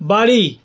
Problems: constant background noise